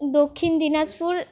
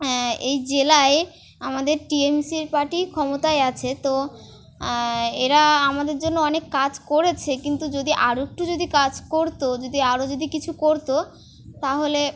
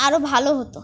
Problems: none marked